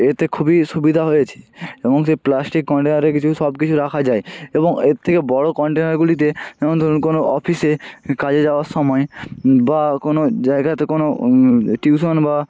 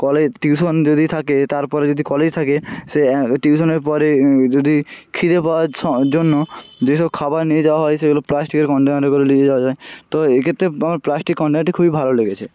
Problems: constant background noise, continuous background conversations